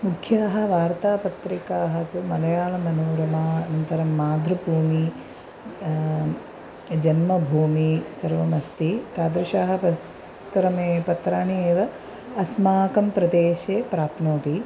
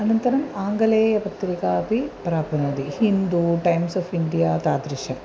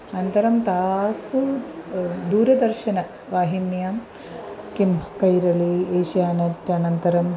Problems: constant background noise